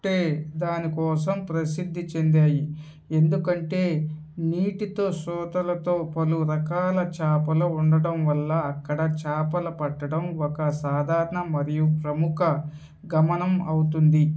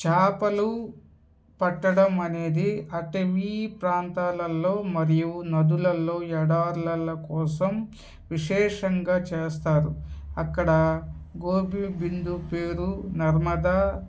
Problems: background sounds at intervals